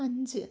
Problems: low volume